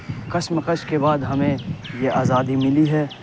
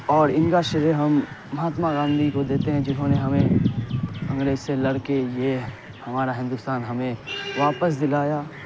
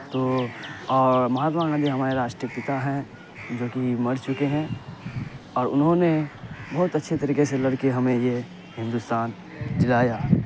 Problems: constant background noise, low volume